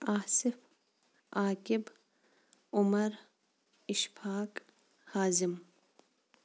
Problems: background sounds at intervals